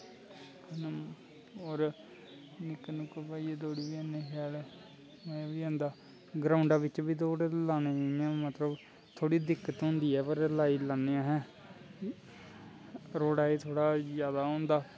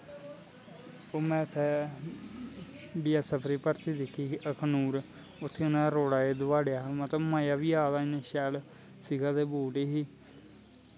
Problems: constant background noise